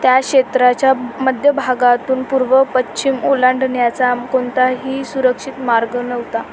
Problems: constant background noise